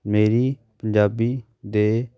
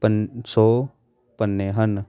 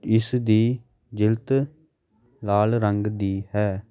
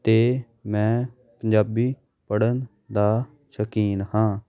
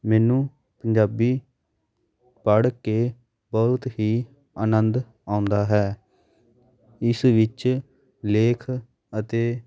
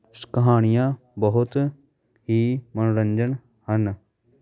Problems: background sounds at intervals, continuous background conversations